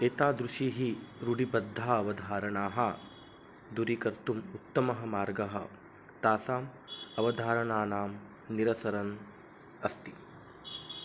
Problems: background sounds at intervals, low volume